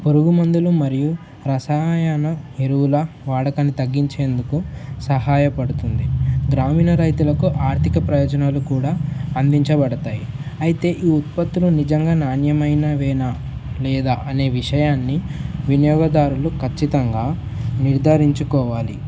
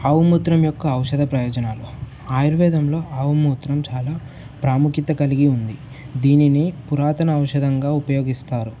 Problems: none marked